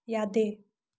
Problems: none marked